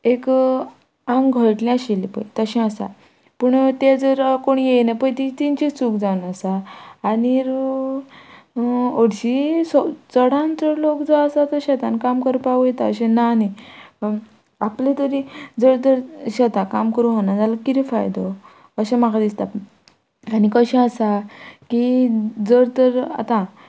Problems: background sounds at intervals